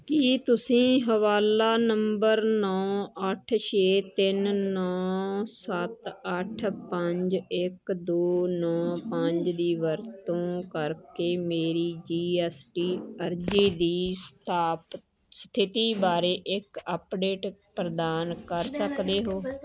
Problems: background conversations at intervals